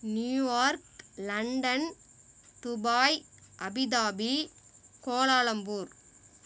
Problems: background sounds at intervals